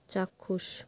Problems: constant background noise